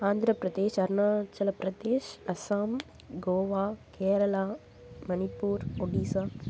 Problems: none marked